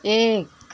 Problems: none marked